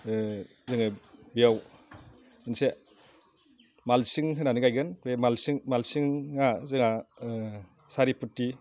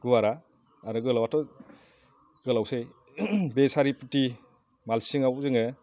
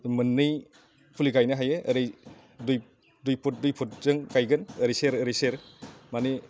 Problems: low volume